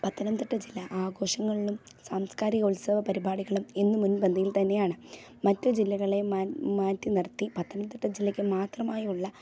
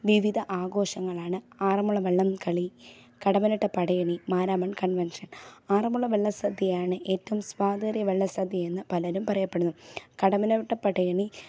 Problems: low volume